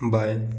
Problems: background sounds at intervals